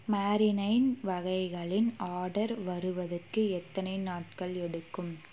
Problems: constant background noise